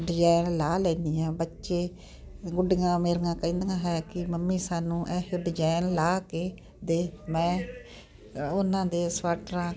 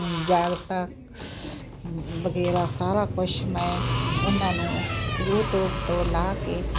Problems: constant background noise